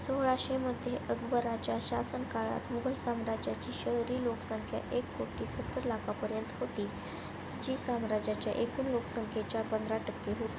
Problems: constant background noise